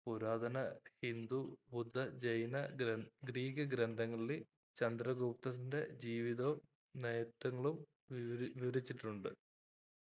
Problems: low volume